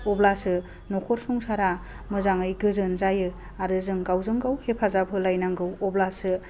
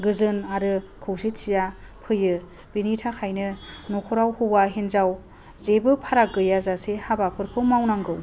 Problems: low volume